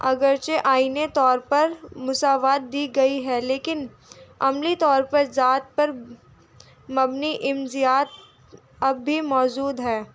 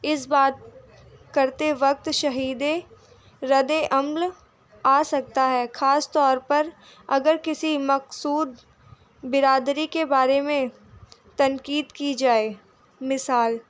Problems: none marked